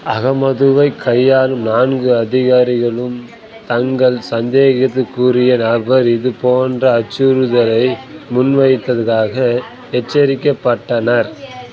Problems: none marked